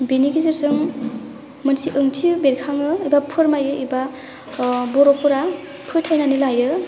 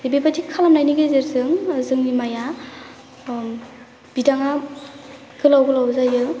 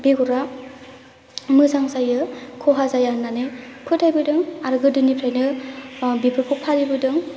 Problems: low volume